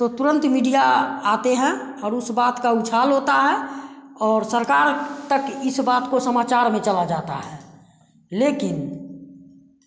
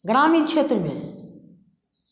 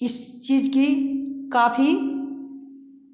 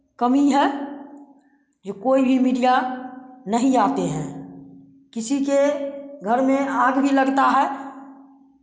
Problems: constant background noise